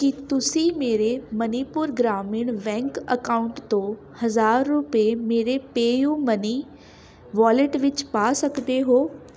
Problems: constant background noise, background conversations at intervals